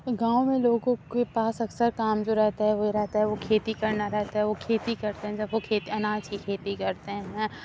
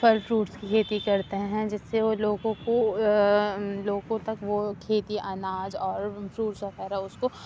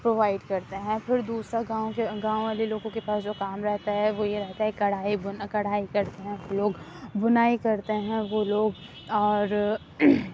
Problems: background sounds at intervals, low volume